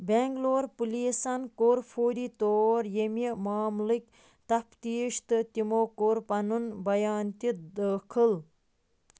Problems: background sounds at intervals